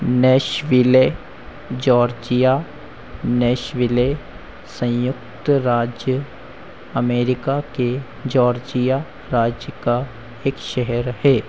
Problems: constant background noise